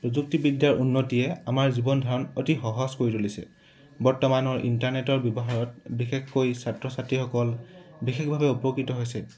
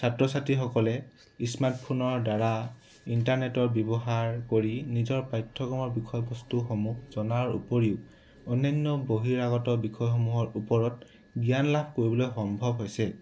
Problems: background sounds at intervals